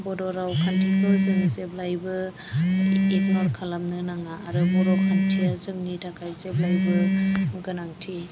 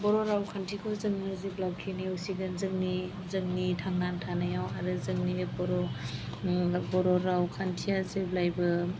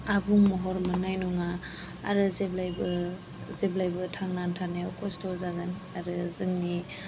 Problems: background sounds at intervals